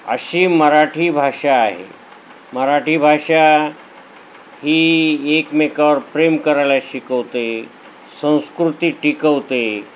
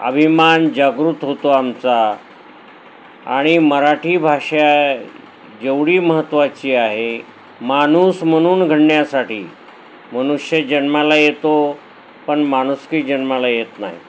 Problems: none marked